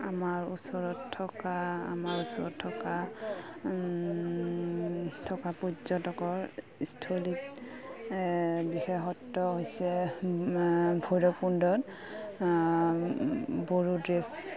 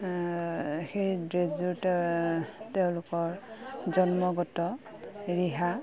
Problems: none marked